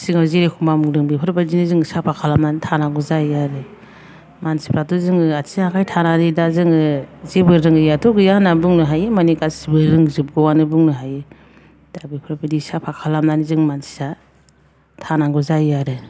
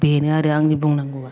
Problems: low volume